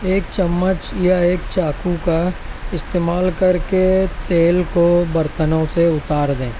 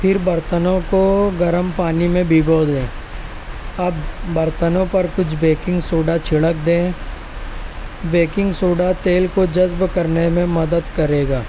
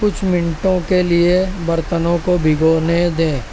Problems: constant background noise